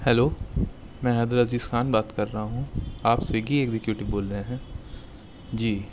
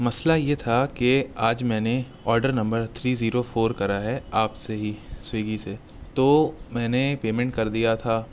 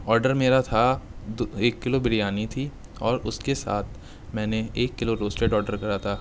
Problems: constant background noise